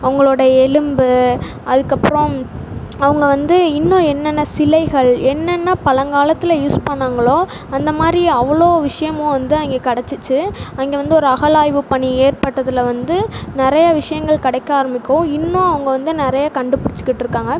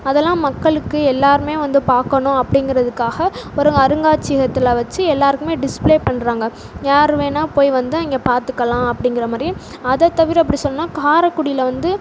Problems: constant background noise